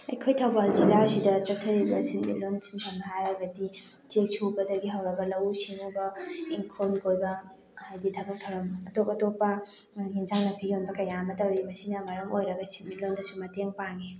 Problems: background sounds at intervals, background conversations at intervals